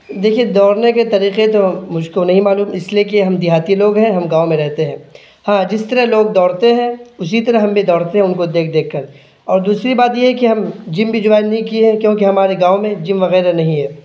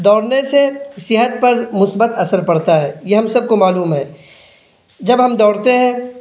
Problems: none marked